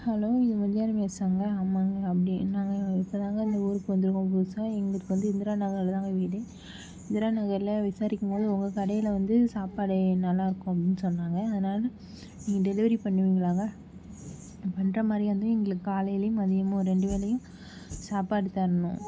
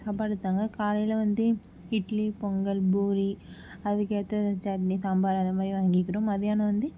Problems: background sounds at intervals